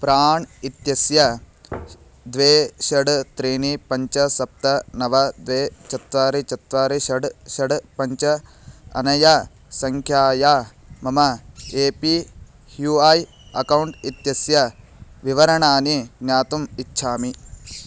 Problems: background sounds at intervals